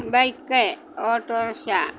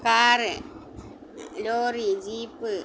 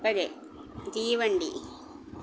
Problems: none marked